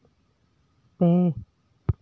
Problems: echo